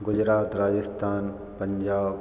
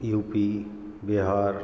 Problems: background sounds at intervals